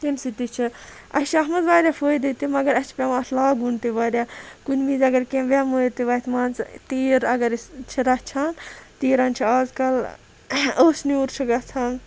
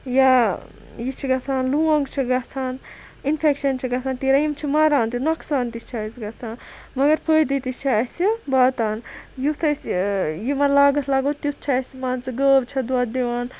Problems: none marked